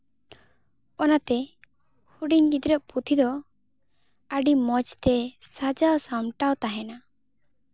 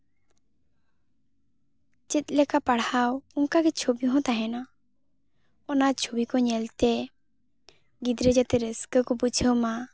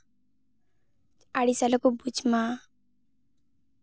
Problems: background sounds at intervals